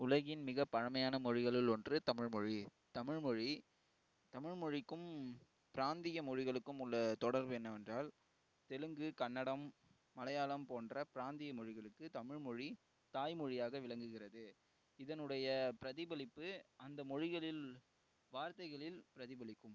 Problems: low volume